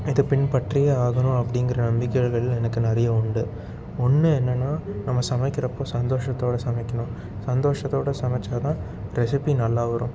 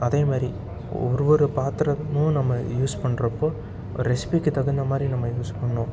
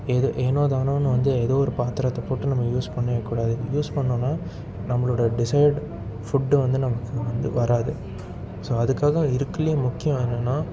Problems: constant background noise